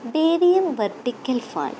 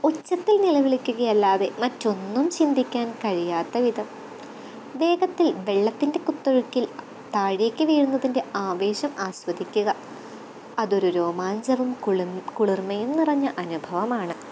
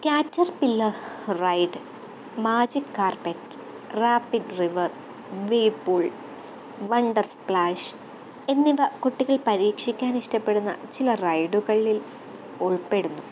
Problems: constant background noise